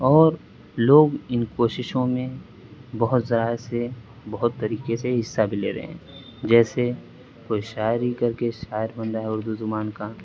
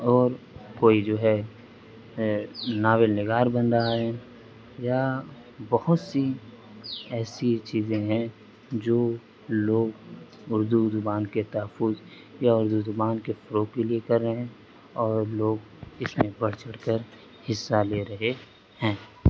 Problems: constant background noise